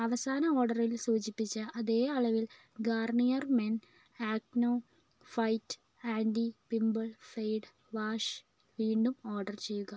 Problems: low volume